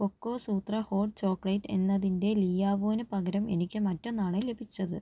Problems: low volume